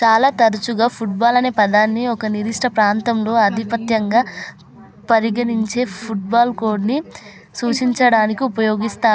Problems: constant background noise, continuous background conversations